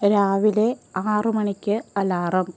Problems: constant background noise